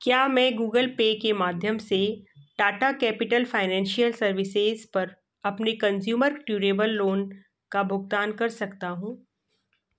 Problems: none marked